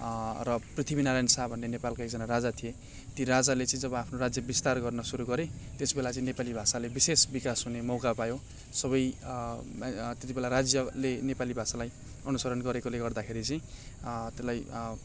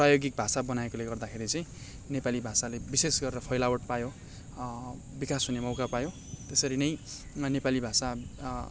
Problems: none marked